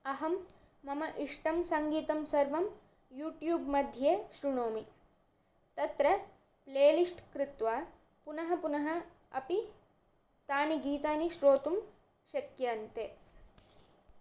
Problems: none marked